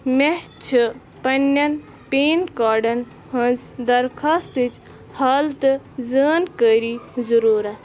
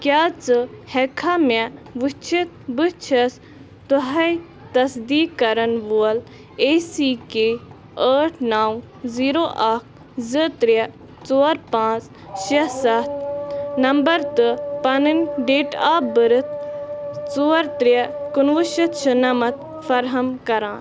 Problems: constant background noise